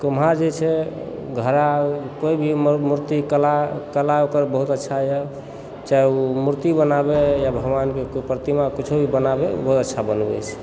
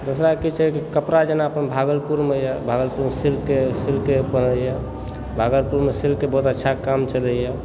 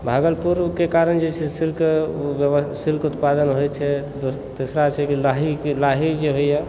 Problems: background sounds at intervals